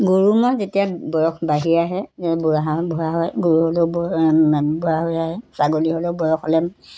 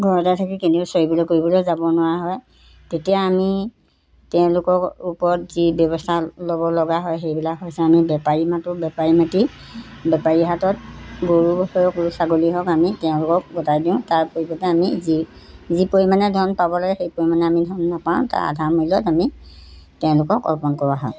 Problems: background sounds at intervals